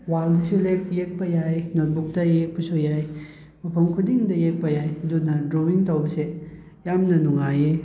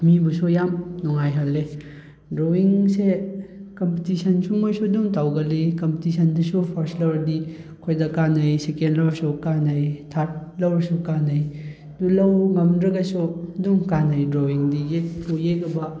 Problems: background conversations at intervals